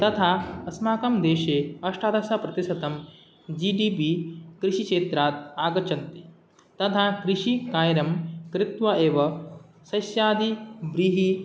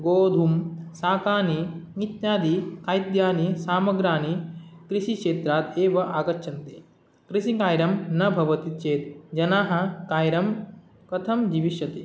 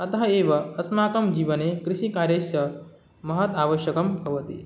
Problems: none marked